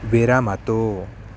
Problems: constant background noise